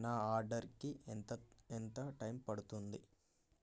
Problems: none marked